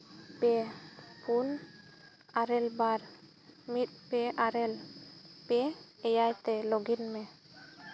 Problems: background sounds at intervals